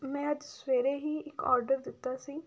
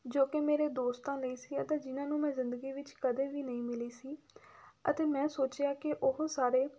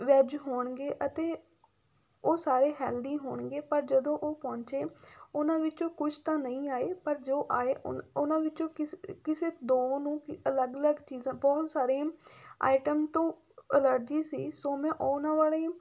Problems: background sounds at intervals